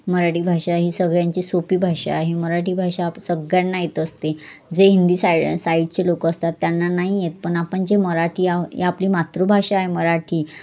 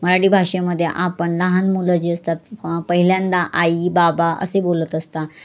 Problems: constant background noise